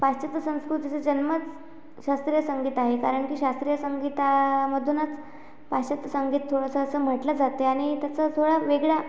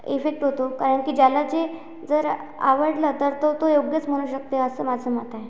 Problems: none marked